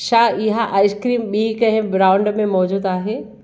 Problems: none marked